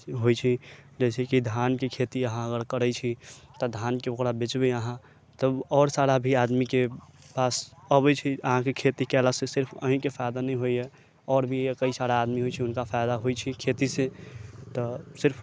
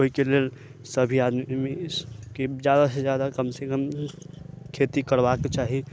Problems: low volume